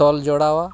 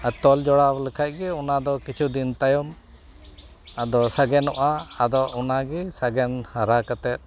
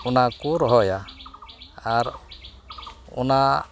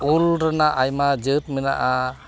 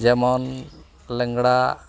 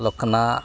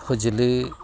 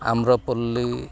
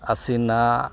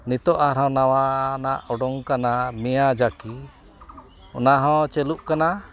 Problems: none marked